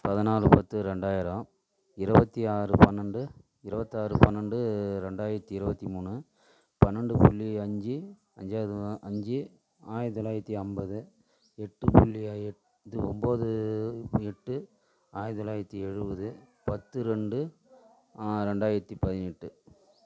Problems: echo